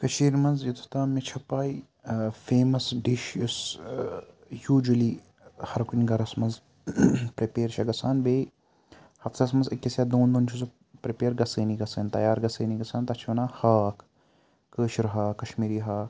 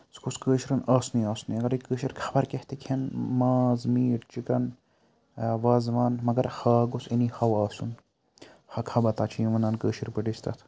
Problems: none marked